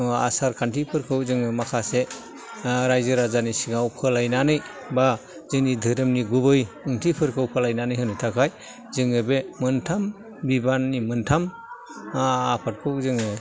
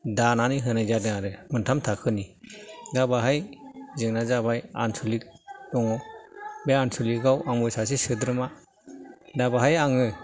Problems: low volume